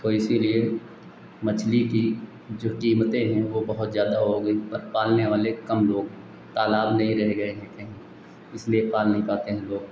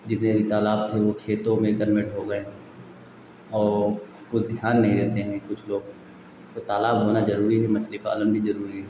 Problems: constant background noise